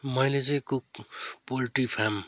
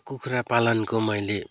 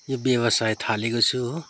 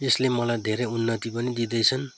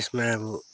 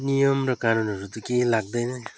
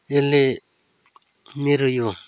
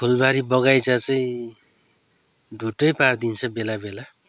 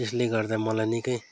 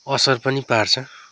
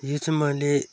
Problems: none marked